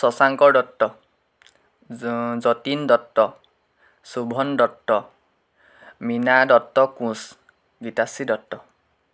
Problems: constant background noise